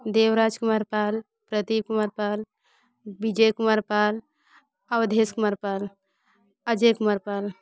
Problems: background sounds at intervals, background conversations at intervals